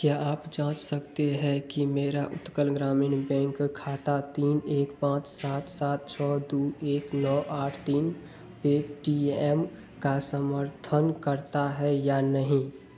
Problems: constant background noise